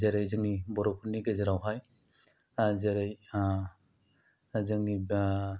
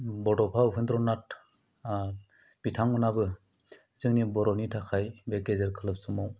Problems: low volume